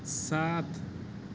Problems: constant background noise